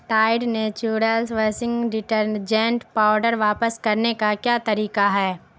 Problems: constant background noise